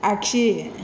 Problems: constant background noise